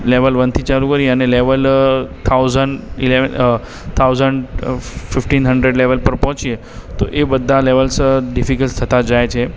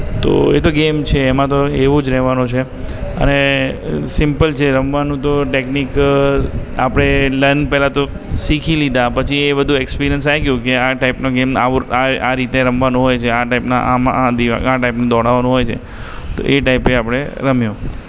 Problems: background sounds at intervals